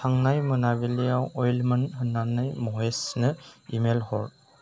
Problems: none marked